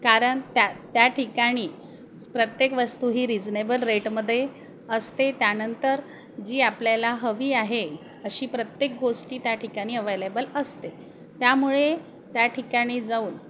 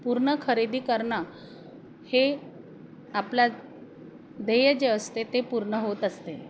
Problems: constant background noise, background conversations at intervals